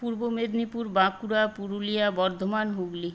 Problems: constant background noise